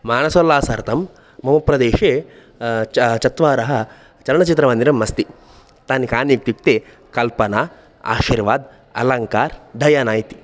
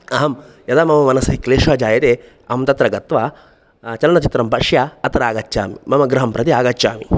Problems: background sounds at intervals